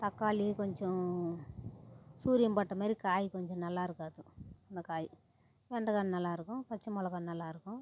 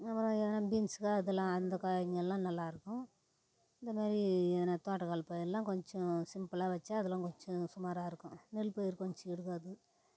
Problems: none marked